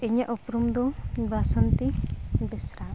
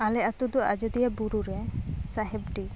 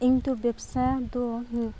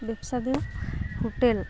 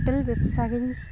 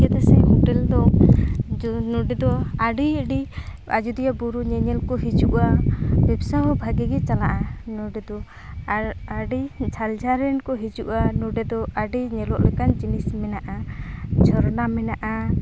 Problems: constant background noise, background conversations at intervals